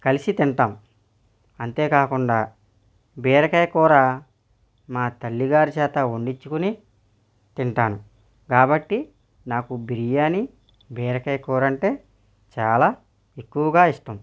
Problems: none marked